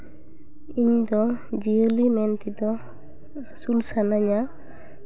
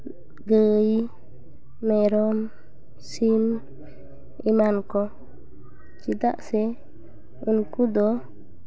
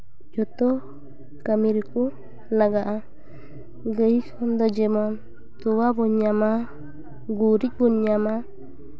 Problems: background sounds at intervals